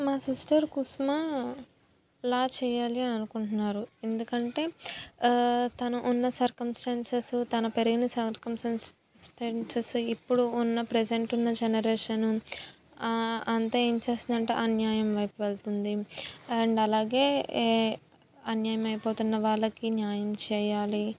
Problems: none marked